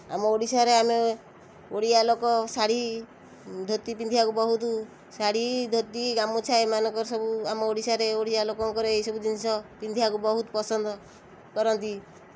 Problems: constant background noise